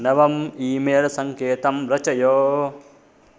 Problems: constant background noise